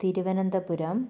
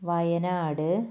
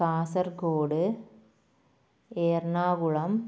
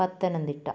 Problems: low volume